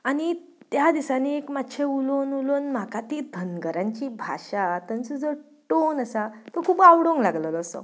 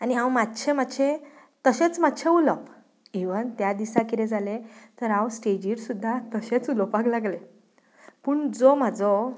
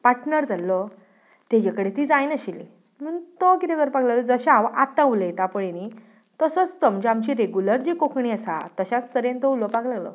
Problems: none marked